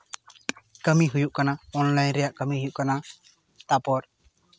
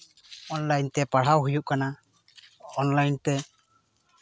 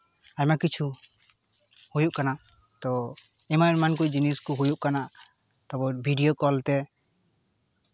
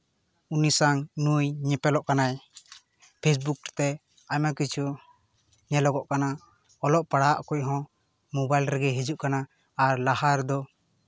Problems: constant background noise